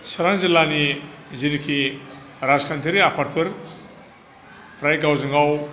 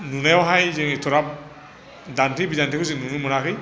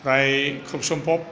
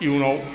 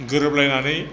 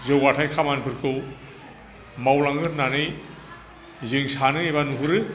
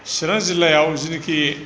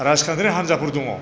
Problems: none marked